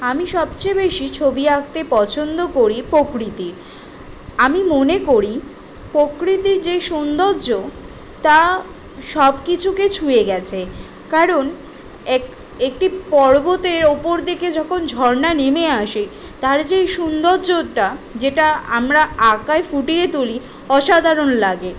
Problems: background sounds at intervals